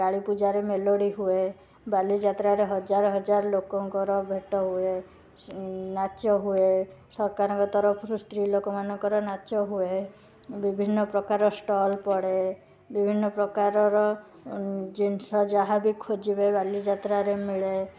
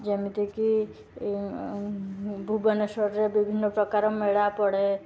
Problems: constant background noise